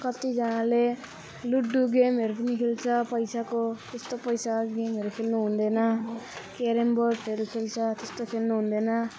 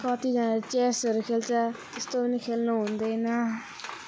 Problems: none marked